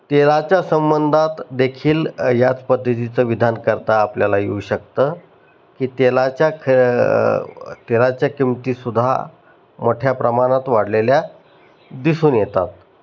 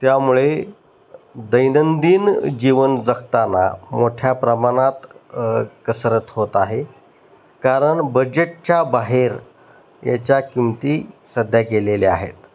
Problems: none marked